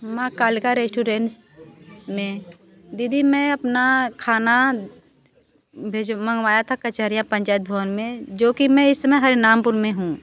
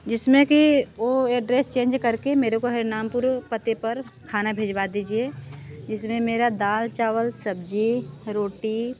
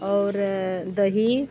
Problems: background sounds at intervals